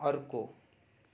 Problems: background sounds at intervals